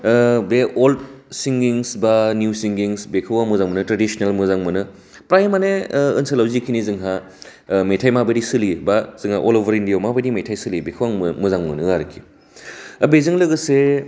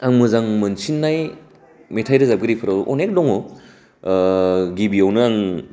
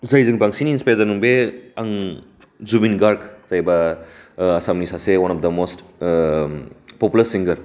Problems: constant background noise